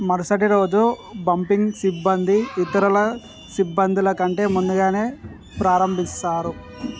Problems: none marked